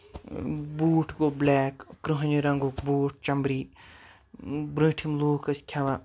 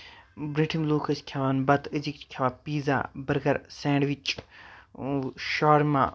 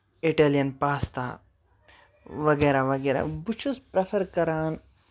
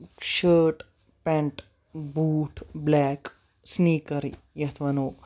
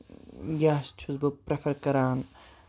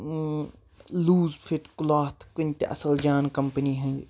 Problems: background sounds at intervals